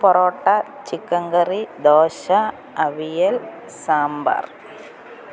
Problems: constant background noise, low volume